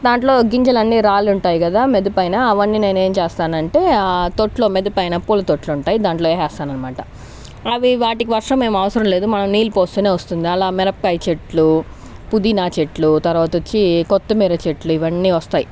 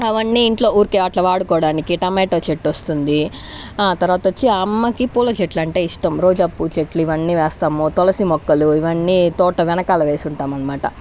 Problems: constant background noise